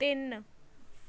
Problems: background sounds at intervals